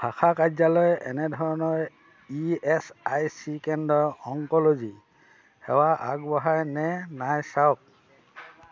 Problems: constant background noise, background conversations at intervals